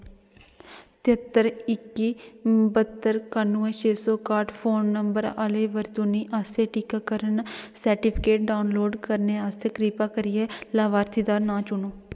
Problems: none marked